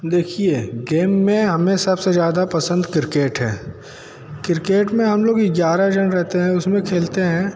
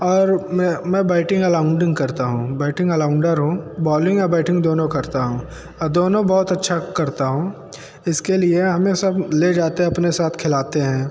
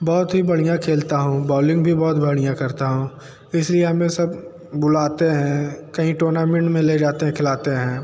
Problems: none marked